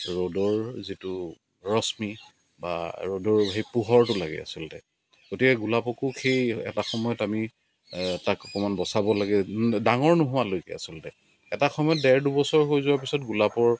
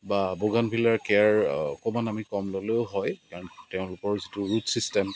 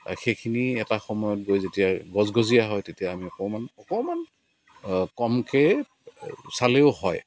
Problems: constant background noise